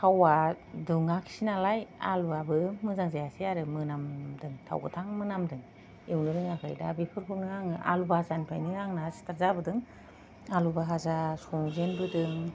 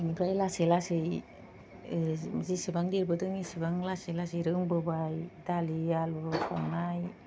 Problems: low volume